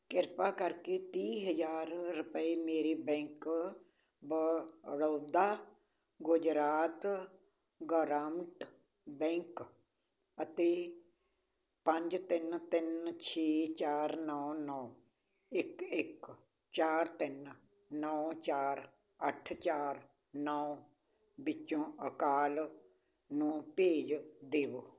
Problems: none marked